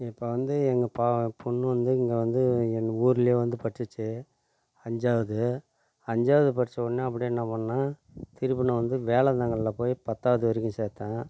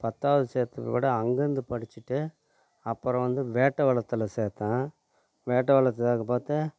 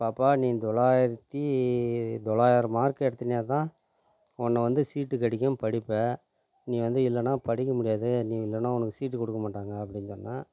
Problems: low volume